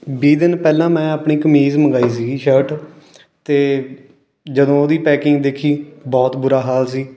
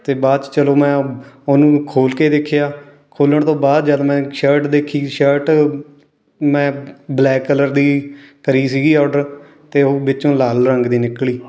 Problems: background sounds at intervals, continuous background conversations